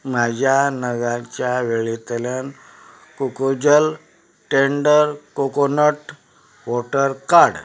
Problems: none marked